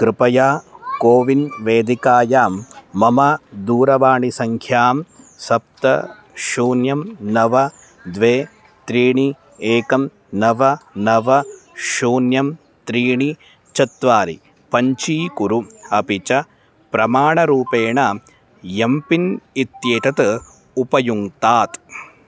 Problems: constant background noise, background conversations at intervals